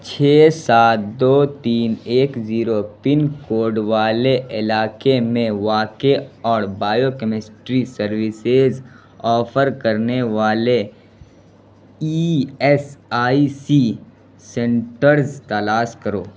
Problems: constant background noise